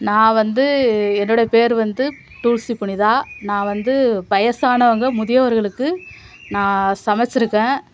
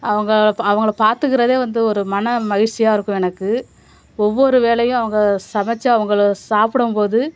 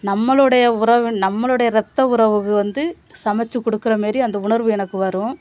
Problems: background sounds at intervals